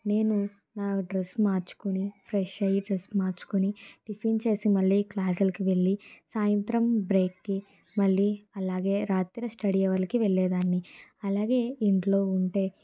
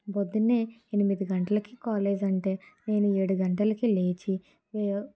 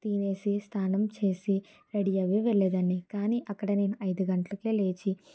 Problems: none marked